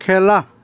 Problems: constant background noise